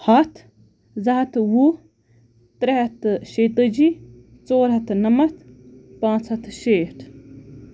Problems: none marked